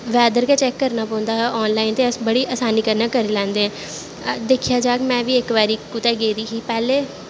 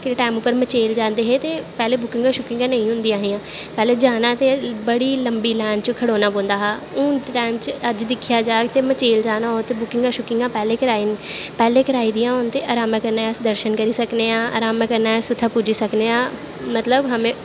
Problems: constant background noise